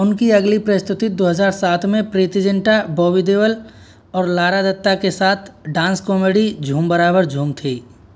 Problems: constant background noise